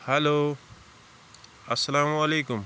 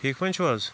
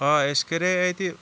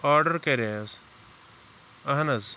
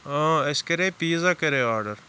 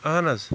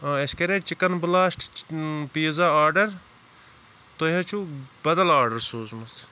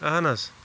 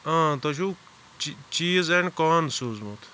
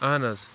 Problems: constant background noise